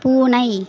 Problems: continuous background conversations